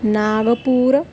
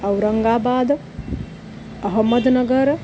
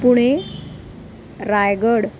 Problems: none marked